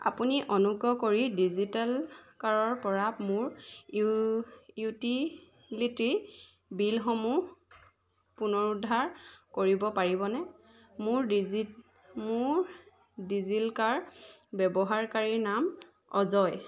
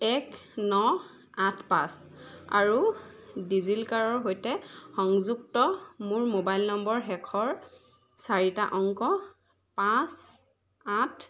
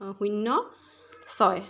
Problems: none marked